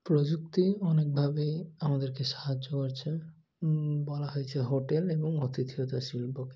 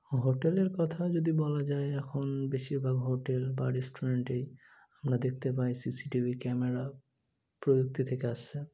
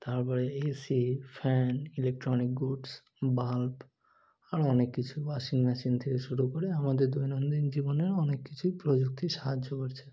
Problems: none marked